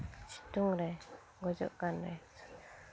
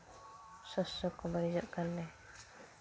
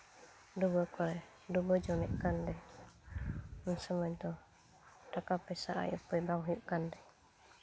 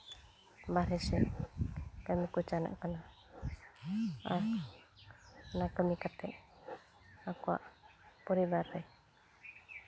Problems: background sounds at intervals